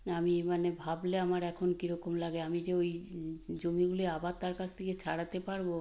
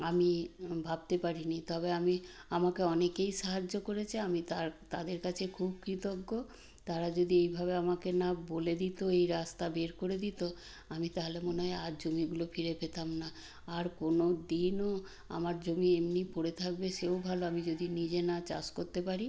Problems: background sounds at intervals